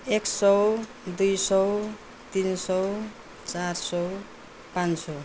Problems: none marked